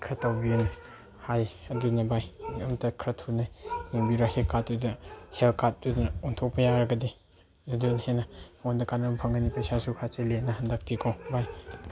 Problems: background sounds at intervals